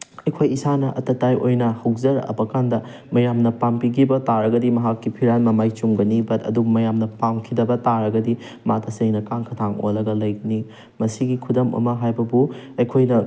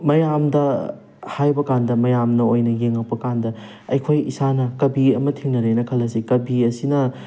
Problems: none marked